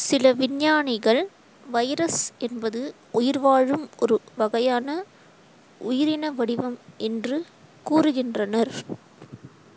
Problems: constant background noise